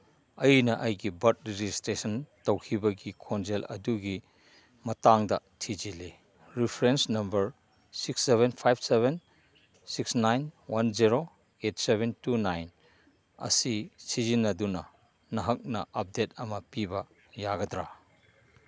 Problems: background sounds at intervals